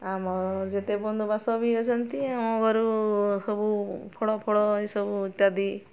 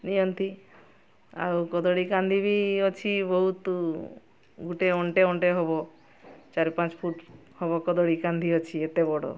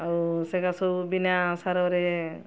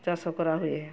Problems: constant background noise